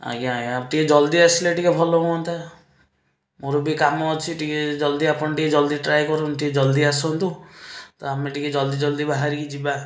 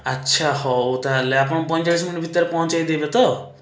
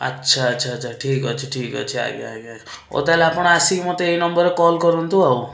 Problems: none marked